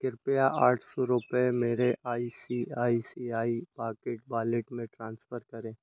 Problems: constant background noise